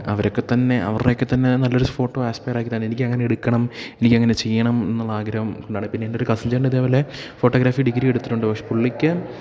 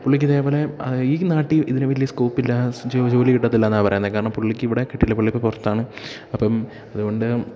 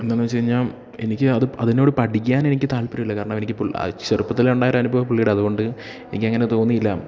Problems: none marked